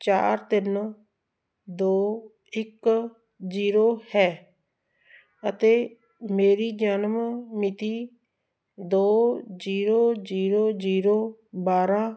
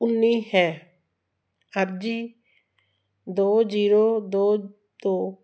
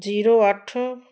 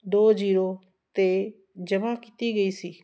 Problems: constant background noise